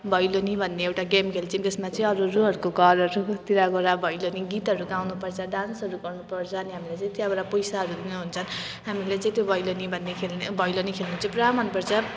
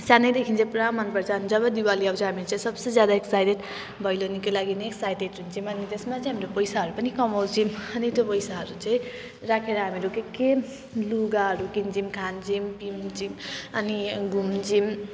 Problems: none marked